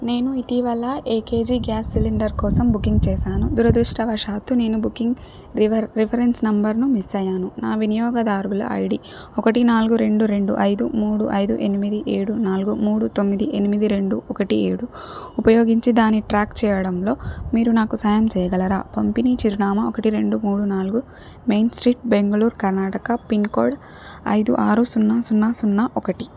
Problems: background sounds at intervals